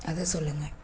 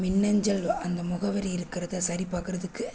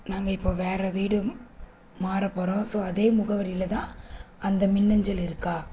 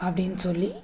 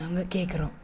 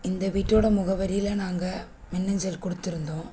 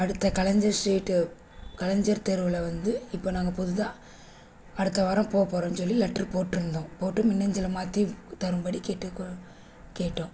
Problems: constant background noise